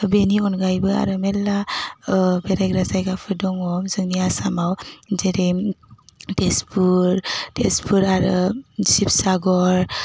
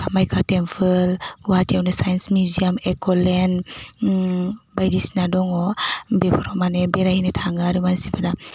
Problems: constant background noise